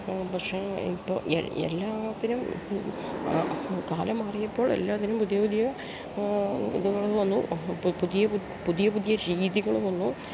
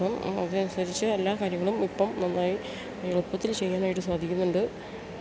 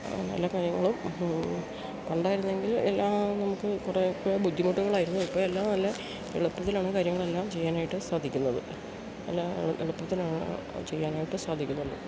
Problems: none marked